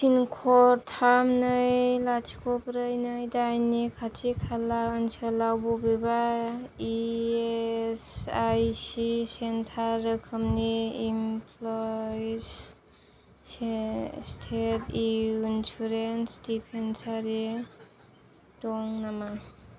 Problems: none marked